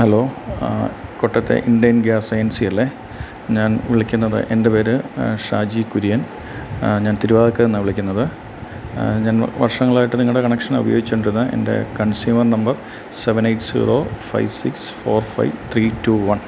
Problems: constant background noise